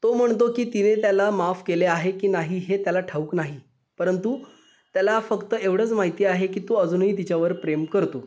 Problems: background sounds at intervals, echo